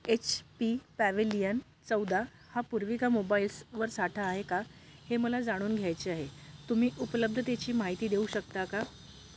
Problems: none marked